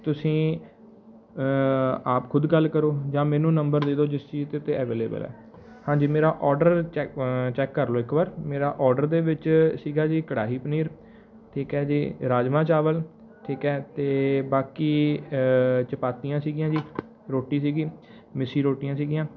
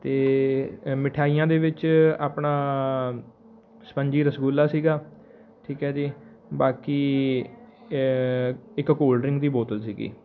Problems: background sounds at intervals